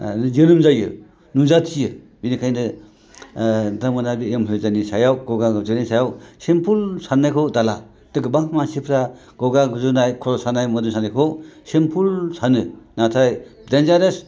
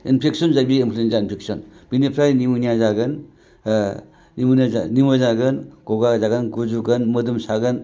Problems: none marked